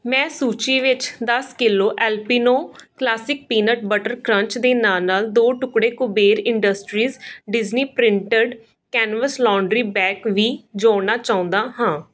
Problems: background sounds at intervals